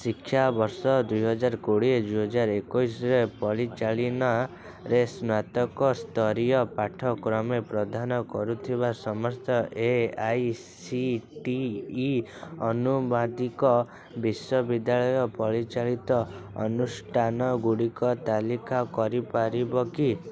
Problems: constant background noise, continuous background conversations